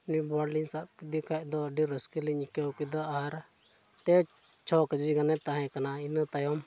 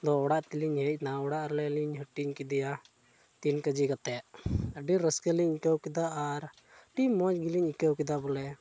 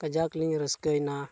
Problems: background sounds at intervals